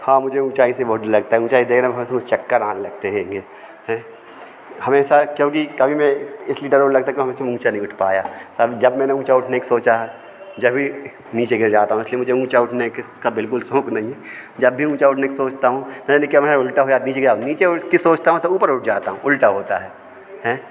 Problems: constant background noise, background conversations at intervals